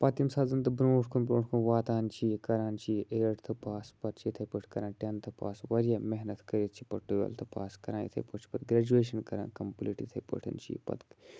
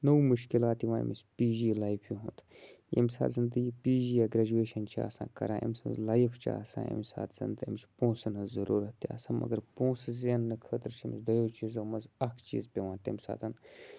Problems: none marked